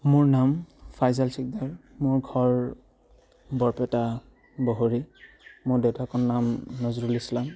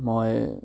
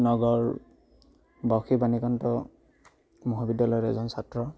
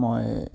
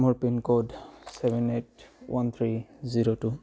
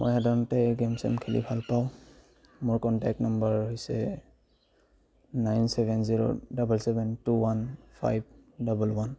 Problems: none marked